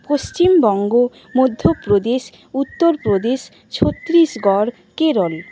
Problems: constant background noise